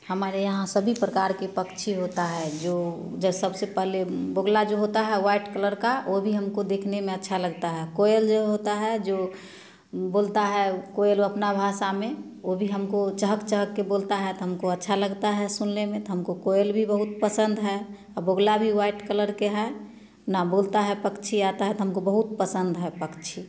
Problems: background sounds at intervals